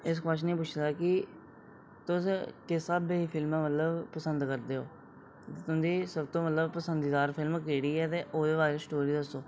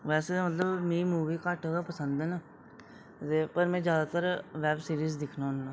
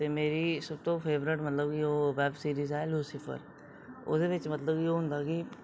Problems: none marked